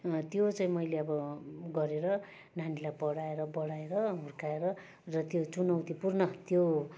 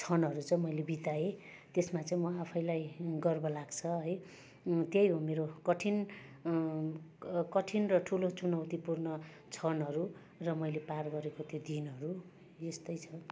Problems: constant background noise, background conversations at intervals